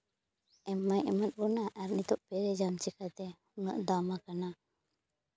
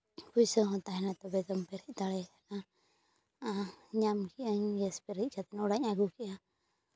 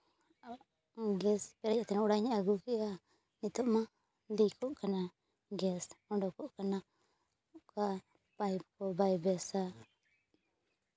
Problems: background sounds at intervals